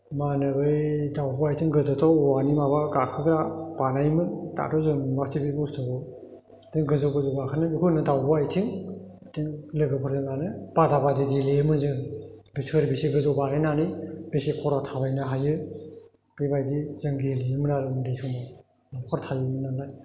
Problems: constant background noise